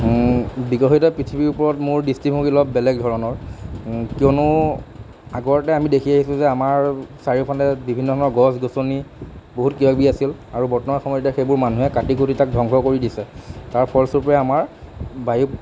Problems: constant background noise